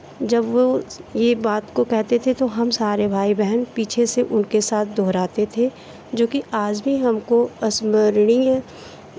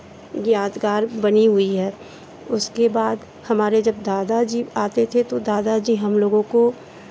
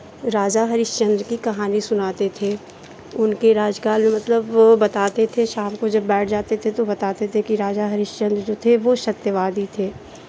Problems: constant background noise